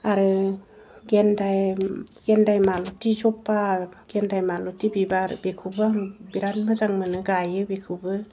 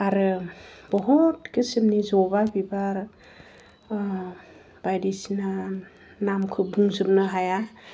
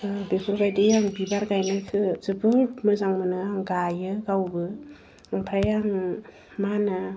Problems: none marked